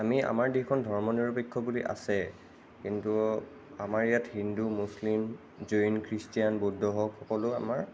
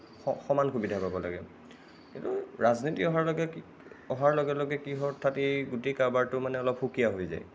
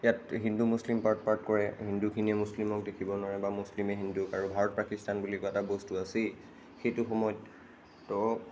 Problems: none marked